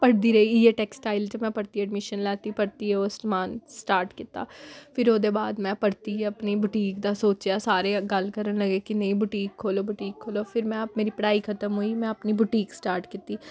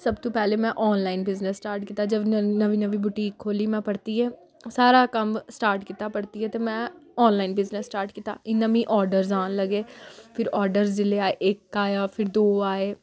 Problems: none marked